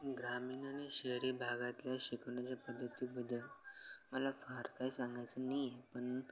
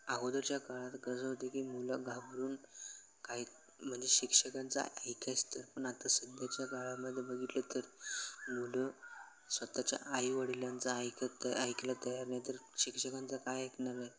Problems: none marked